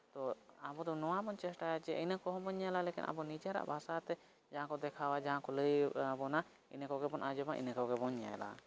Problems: background sounds at intervals